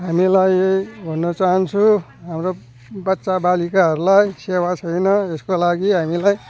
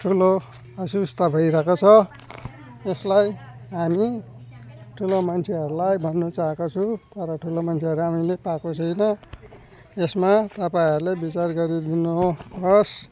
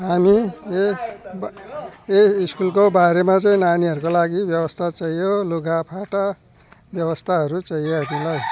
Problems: none marked